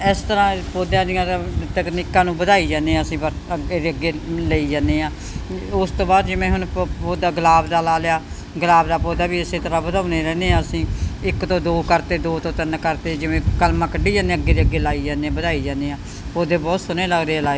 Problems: constant background noise